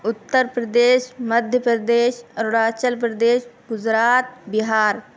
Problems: constant background noise